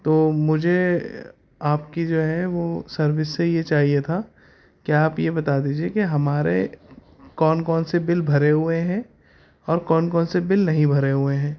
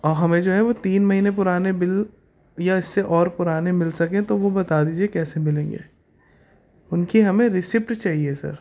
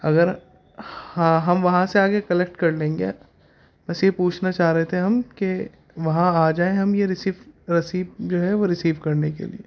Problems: constant background noise